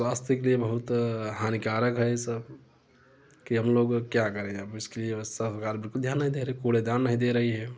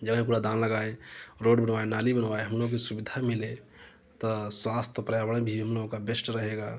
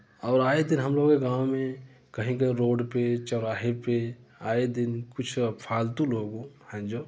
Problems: constant background noise, background conversations at intervals